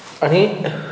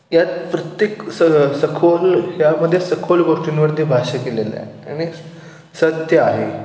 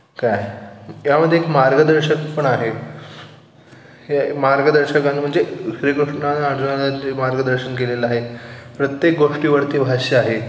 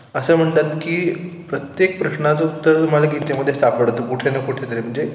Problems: constant background noise